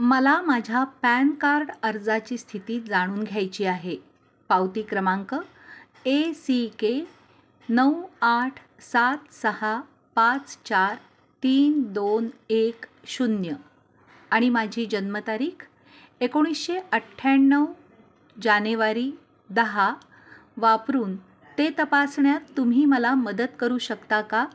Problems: background sounds at intervals